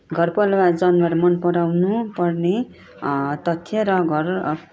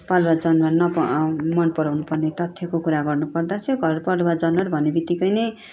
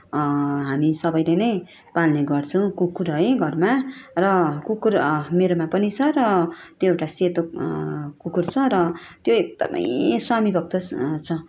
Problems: background sounds at intervals